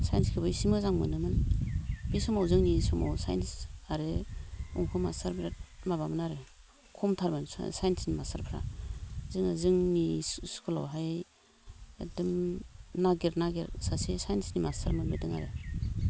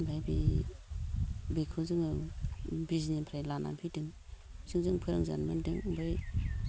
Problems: low volume